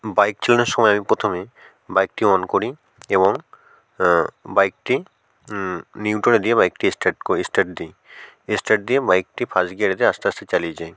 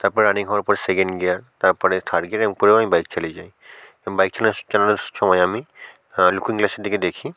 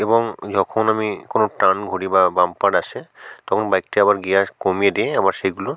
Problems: background sounds at intervals